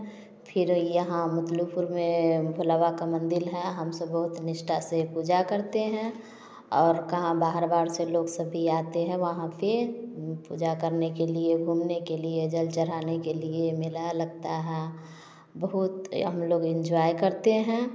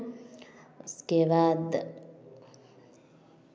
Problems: none marked